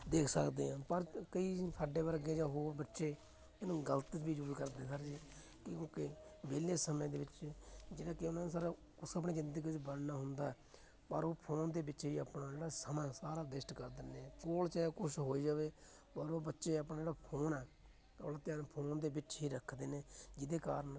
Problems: constant background noise, continuous background conversations